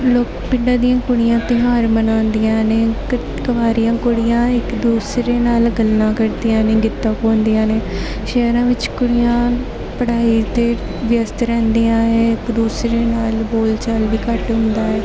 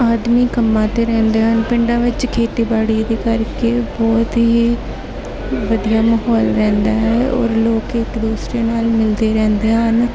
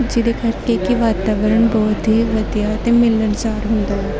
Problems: constant background noise, continuous background conversations